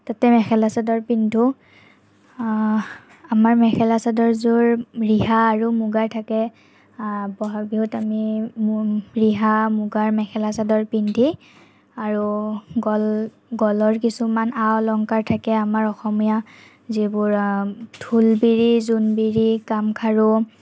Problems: none marked